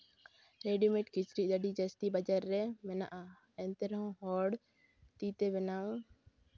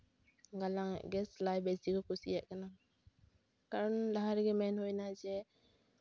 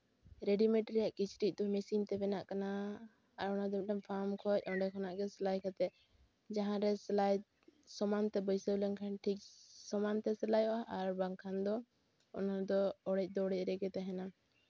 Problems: background sounds at intervals